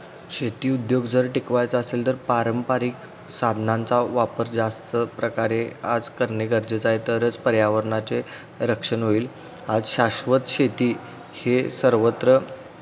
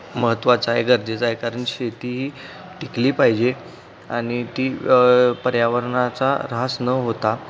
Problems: constant background noise